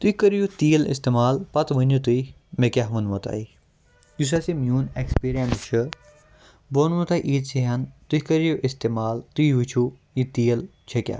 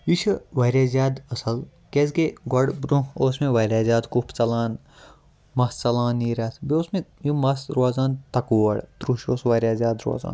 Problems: background sounds at intervals